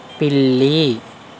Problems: constant background noise